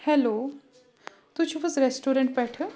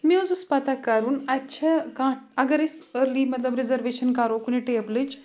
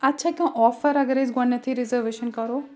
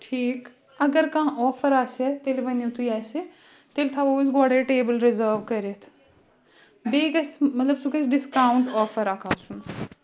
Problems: continuous background conversations